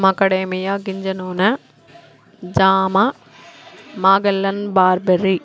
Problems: constant background noise